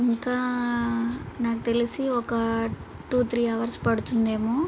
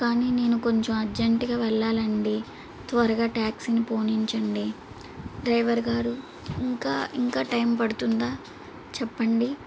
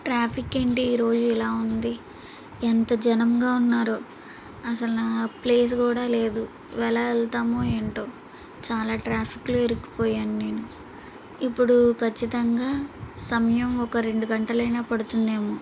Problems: none marked